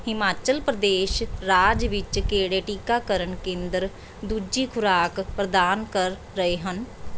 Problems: none marked